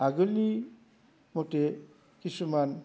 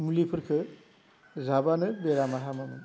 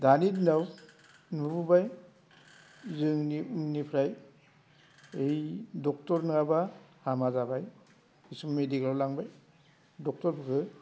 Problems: constant background noise